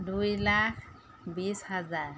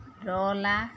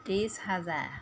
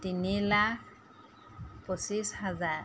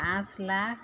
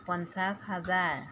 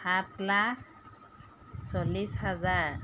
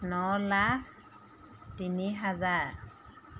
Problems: none marked